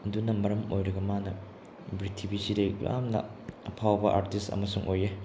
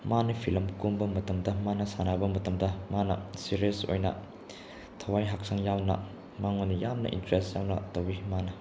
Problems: none marked